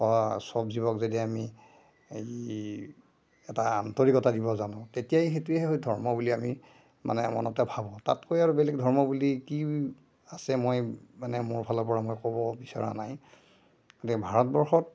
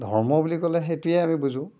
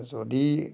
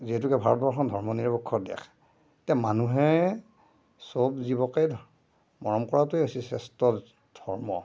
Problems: none marked